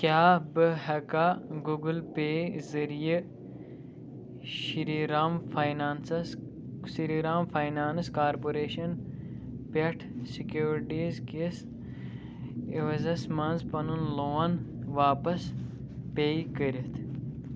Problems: low volume